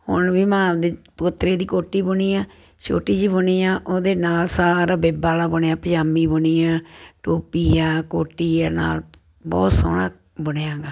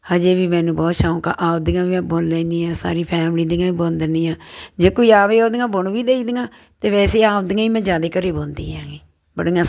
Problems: constant background noise